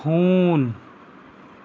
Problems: none marked